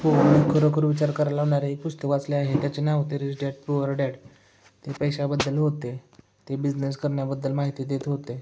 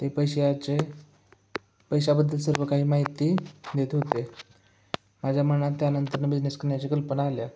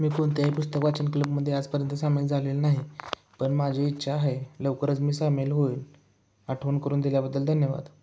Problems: none marked